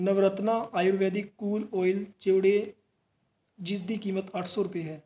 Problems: background sounds at intervals